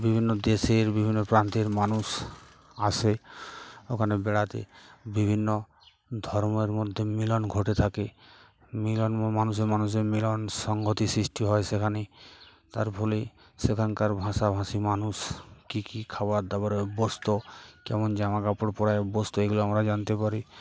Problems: none marked